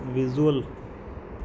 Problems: background sounds at intervals